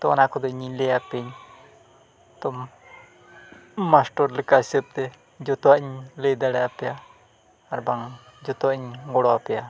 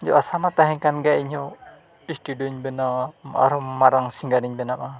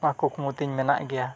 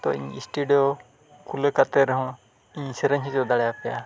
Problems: background sounds at intervals, background conversations at intervals, low volume